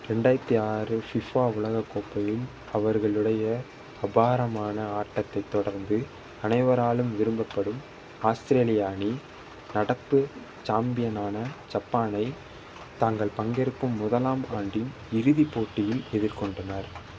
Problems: constant background noise